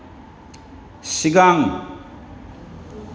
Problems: constant background noise